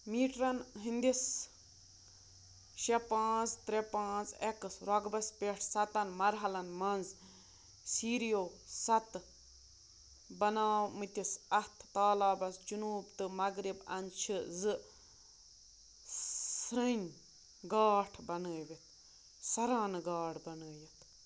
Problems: constant background noise